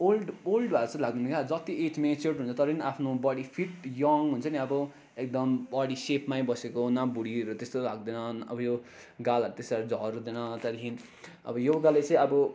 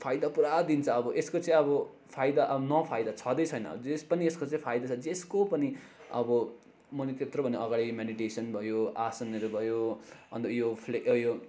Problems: constant background noise